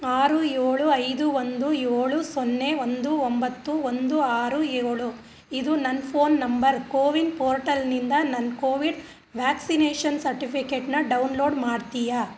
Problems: none marked